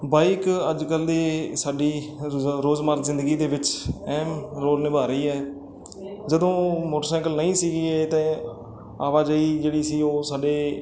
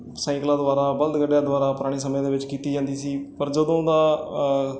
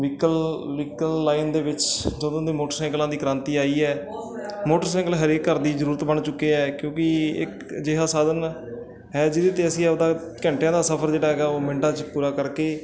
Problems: constant background noise